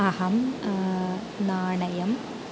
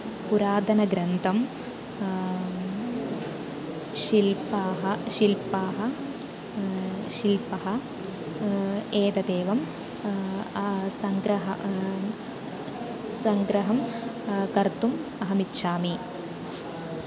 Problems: constant background noise